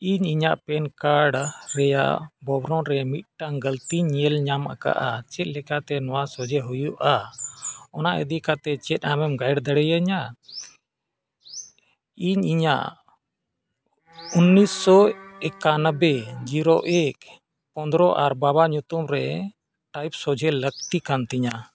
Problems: background sounds at intervals